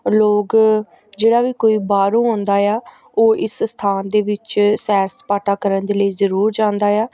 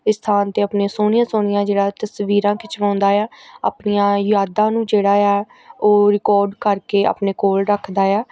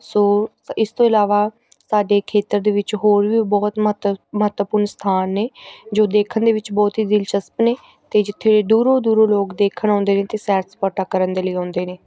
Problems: background sounds at intervals, background conversations at intervals